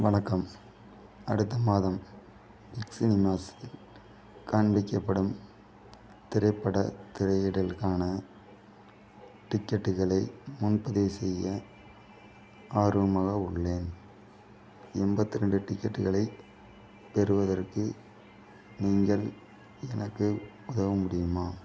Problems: none marked